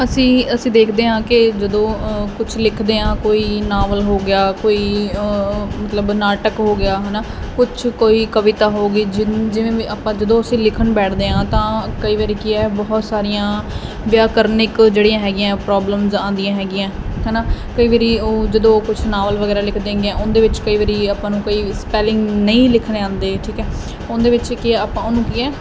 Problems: constant background noise